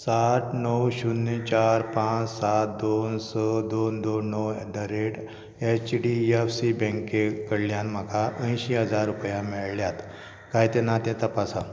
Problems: background sounds at intervals